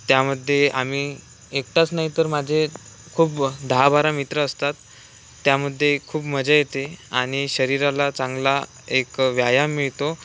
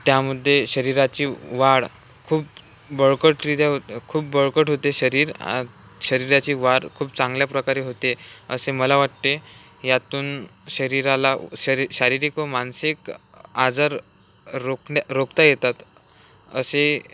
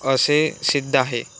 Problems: none marked